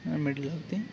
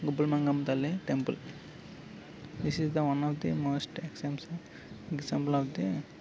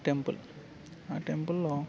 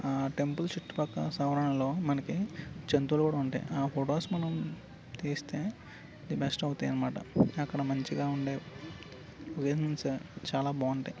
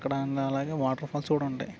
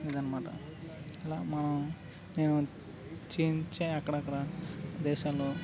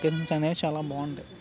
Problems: constant background noise